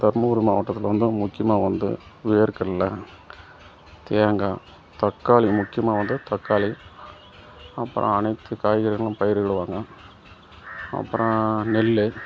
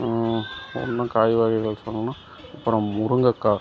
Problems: background sounds at intervals